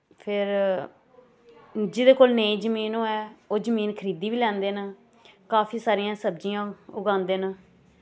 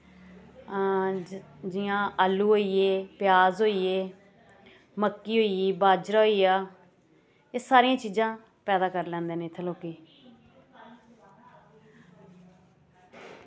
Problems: constant background noise